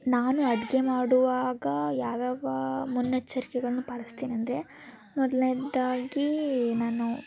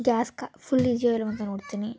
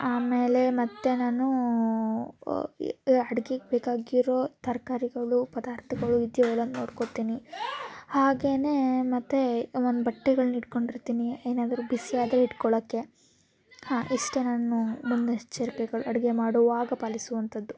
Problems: constant background noise, continuous background conversations